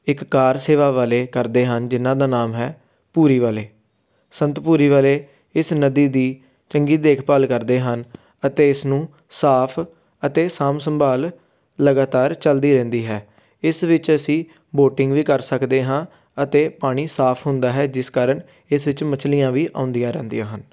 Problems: background sounds at intervals